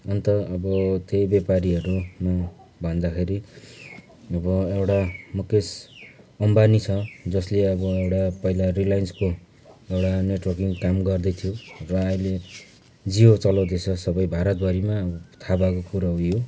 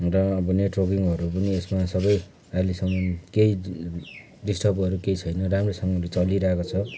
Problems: constant background noise